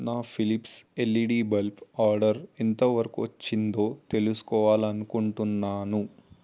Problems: none marked